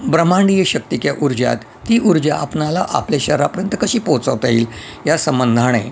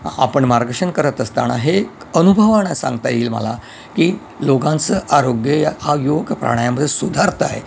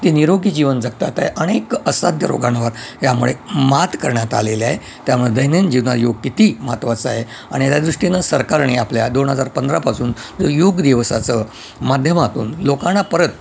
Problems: constant background noise